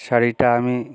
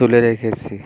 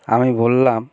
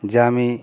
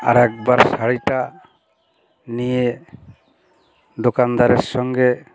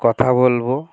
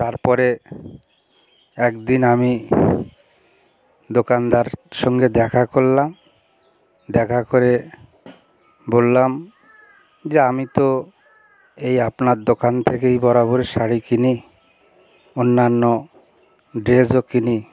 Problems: constant background noise, continuous background conversations